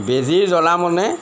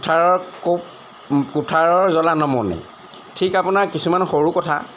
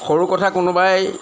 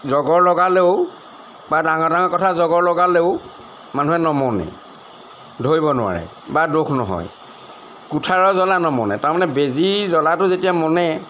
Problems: none marked